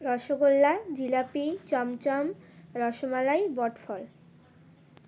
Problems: none marked